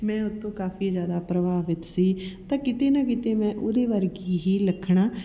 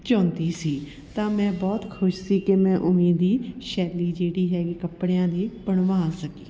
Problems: background sounds at intervals, continuous background conversations